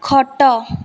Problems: constant background noise